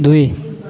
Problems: continuous background conversations